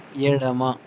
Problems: constant background noise